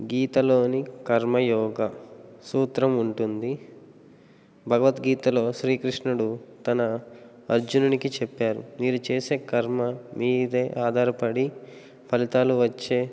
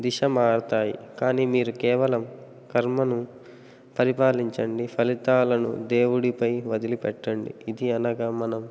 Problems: none marked